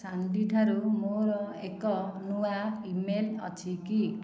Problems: echo, low volume